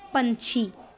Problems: background conversations at intervals